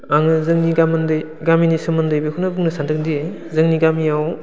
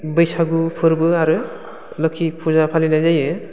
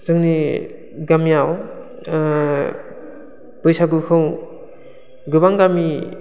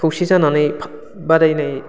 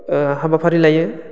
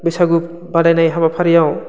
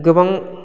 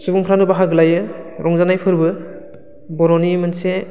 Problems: constant background noise